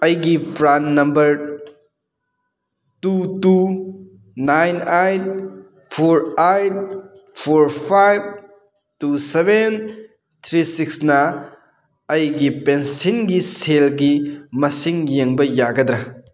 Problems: none marked